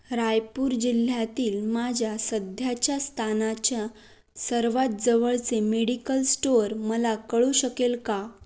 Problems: background sounds at intervals